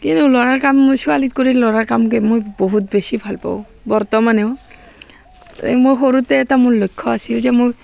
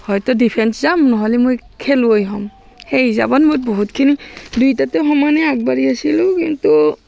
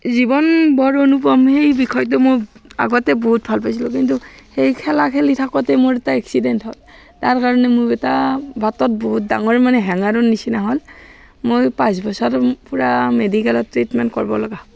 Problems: background sounds at intervals, background conversations at intervals